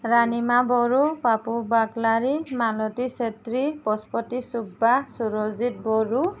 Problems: none marked